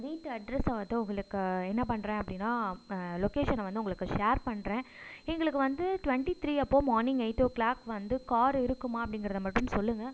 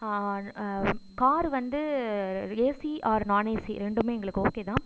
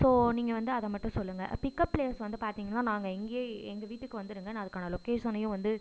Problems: none marked